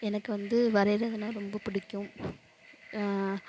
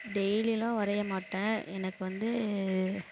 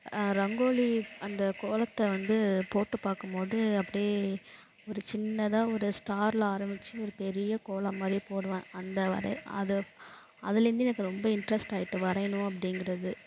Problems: background sounds at intervals